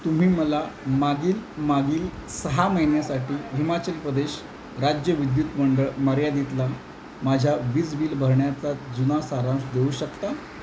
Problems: none marked